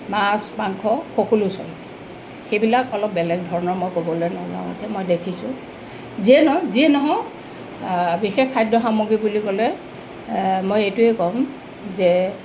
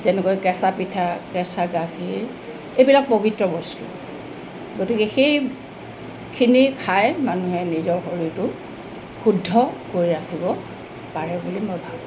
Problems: constant background noise